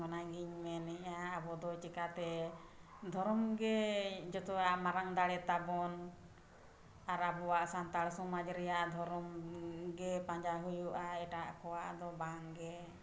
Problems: background sounds at intervals